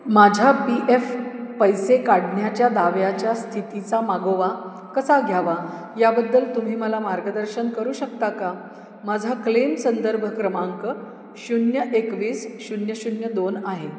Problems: echo